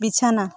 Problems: continuous background conversations